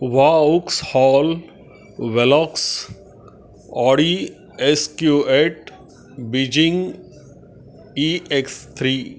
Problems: constant background noise, background conversations at intervals